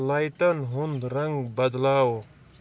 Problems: background sounds at intervals, low volume